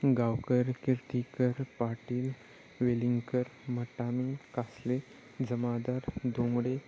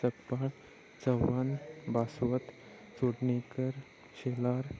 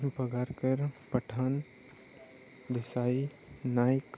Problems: none marked